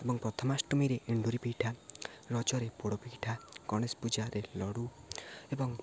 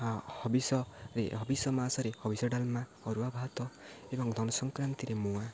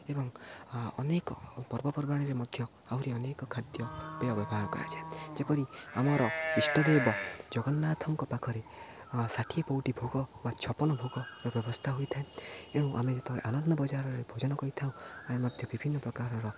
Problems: low volume